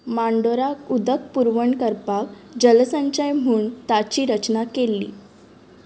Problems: none marked